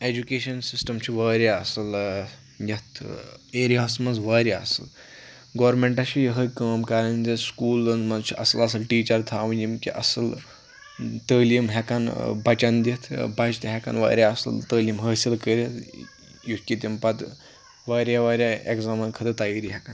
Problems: background sounds at intervals, background conversations at intervals